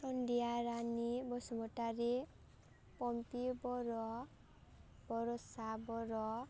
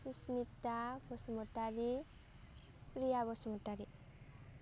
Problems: low volume